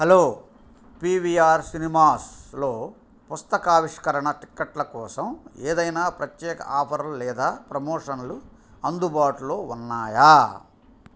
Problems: none marked